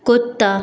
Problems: echo